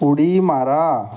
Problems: background sounds at intervals